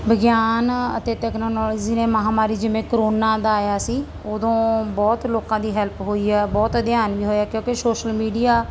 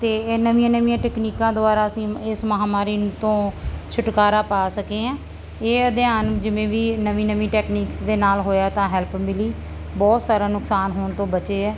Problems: none marked